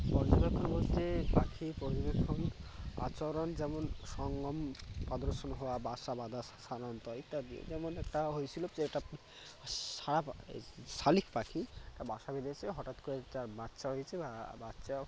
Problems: constant background noise